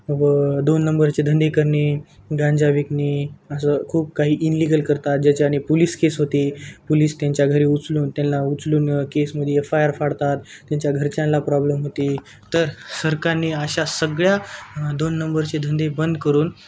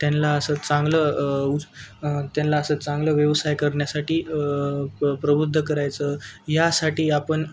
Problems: constant background noise, continuous background conversations